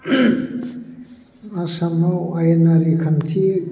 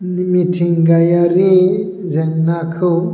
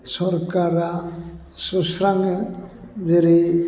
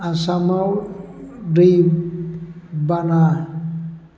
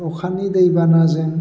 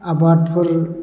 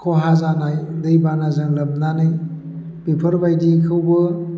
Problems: constant background noise